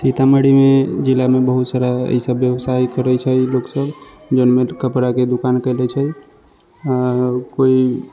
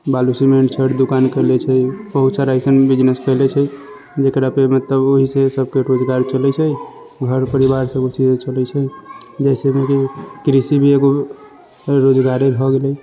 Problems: constant background noise